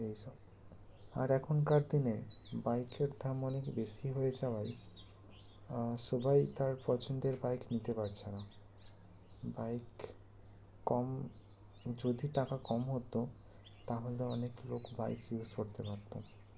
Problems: constant background noise